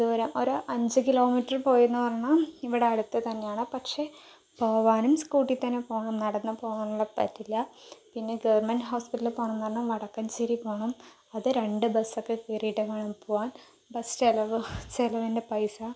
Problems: none marked